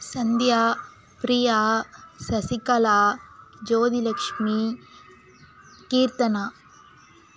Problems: background sounds at intervals